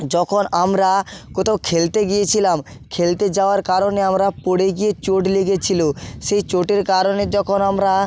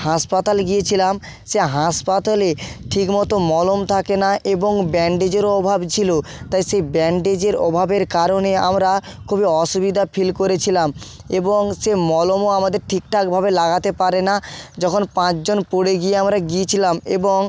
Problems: background sounds at intervals, background conversations at intervals